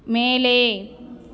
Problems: continuous background conversations